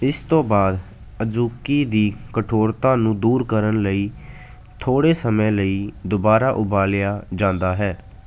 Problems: none marked